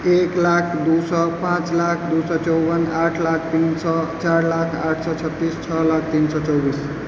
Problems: constant background noise